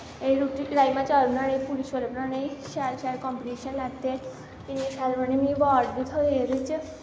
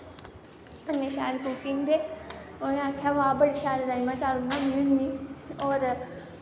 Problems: constant background noise